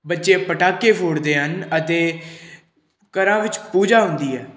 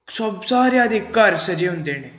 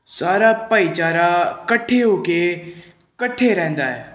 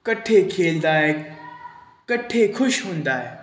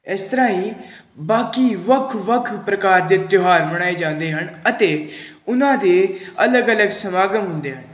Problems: background sounds at intervals